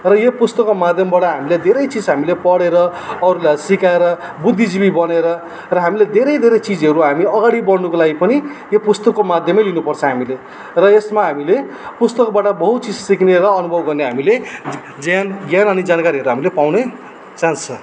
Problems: constant background noise